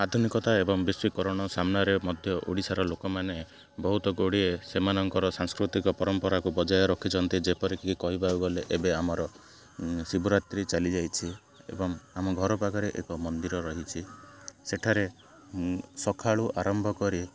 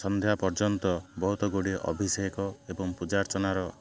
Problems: constant background noise